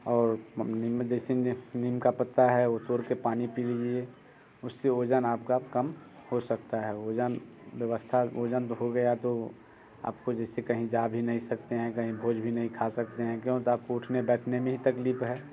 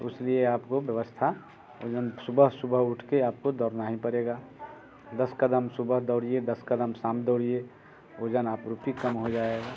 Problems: background sounds at intervals